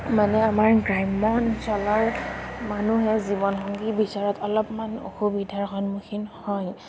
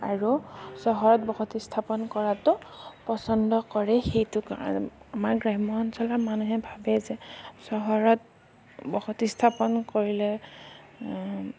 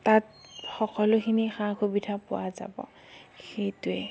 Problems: none marked